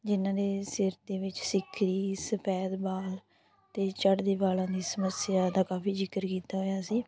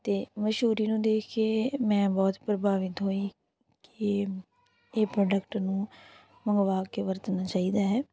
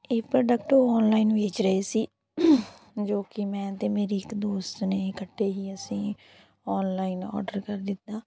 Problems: background conversations at intervals